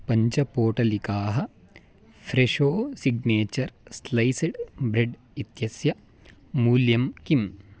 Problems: none marked